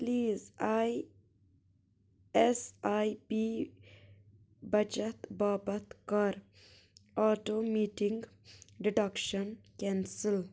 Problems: background sounds at intervals